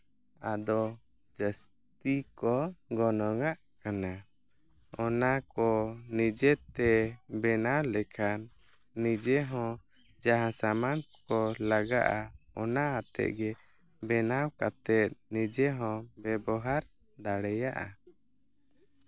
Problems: background sounds at intervals